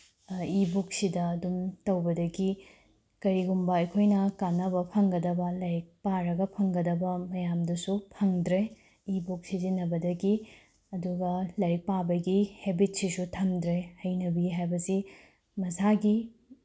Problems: background sounds at intervals